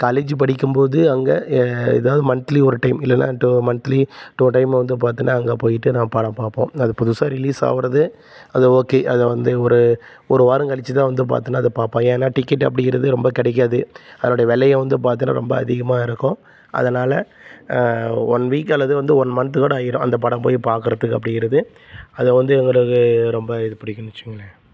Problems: constant background noise